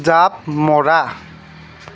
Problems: background sounds at intervals